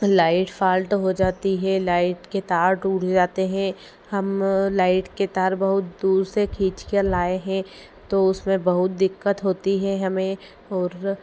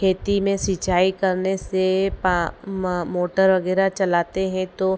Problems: none marked